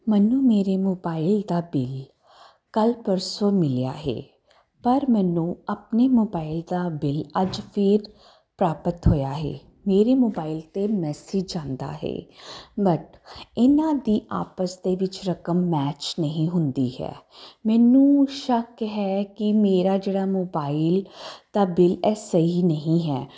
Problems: constant background noise